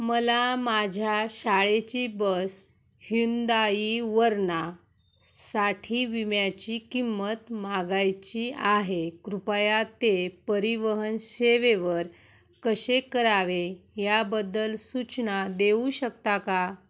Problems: none marked